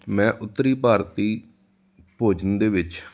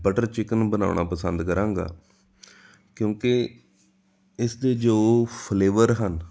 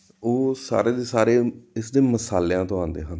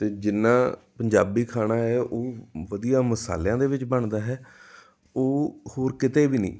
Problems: none marked